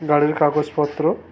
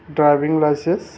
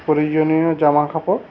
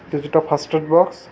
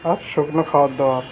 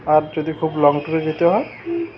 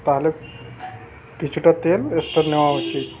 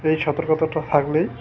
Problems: constant background noise, continuous background conversations